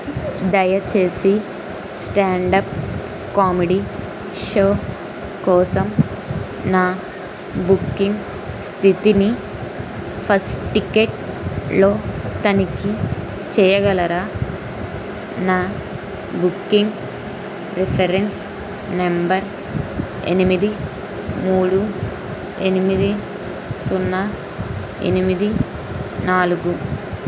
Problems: constant background noise